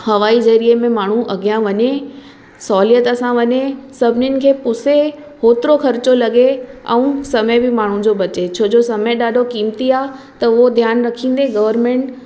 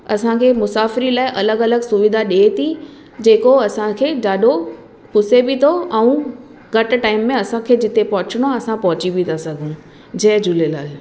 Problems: constant background noise